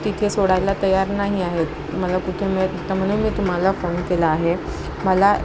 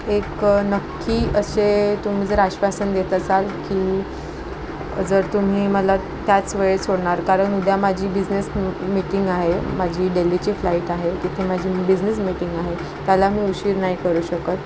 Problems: constant background noise, background conversations at intervals